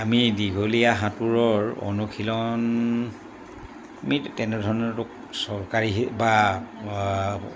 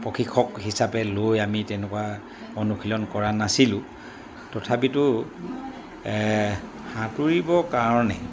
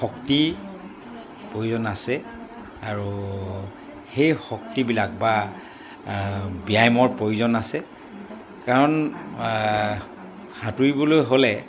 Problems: background sounds at intervals